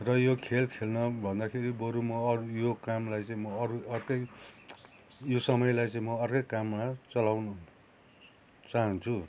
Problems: constant background noise, continuous background conversations